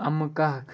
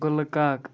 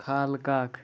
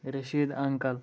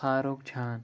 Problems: background sounds at intervals